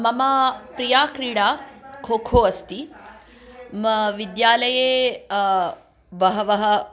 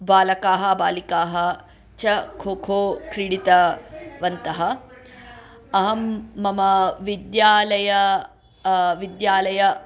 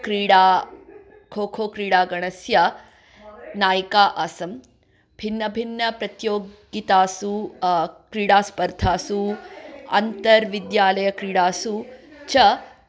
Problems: background conversations at intervals